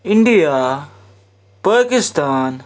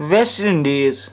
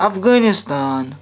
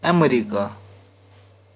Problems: background sounds at intervals